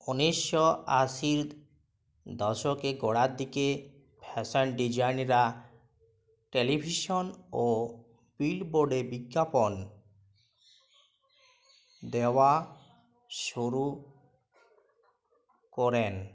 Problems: background sounds at intervals